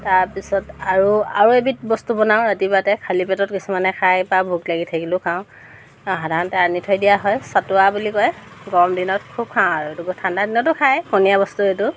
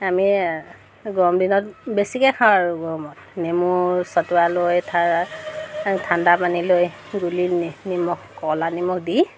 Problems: constant background noise